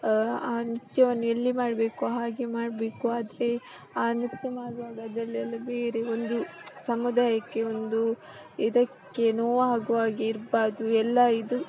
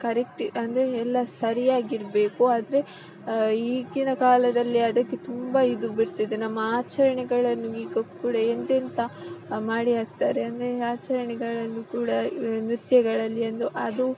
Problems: constant background noise